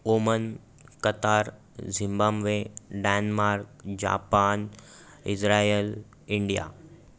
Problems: background sounds at intervals, background conversations at intervals